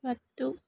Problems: low volume